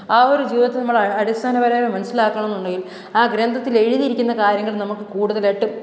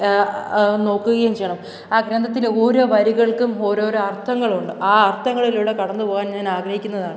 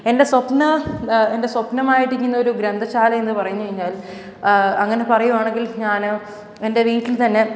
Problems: none marked